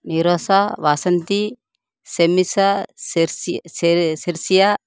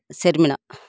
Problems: constant background noise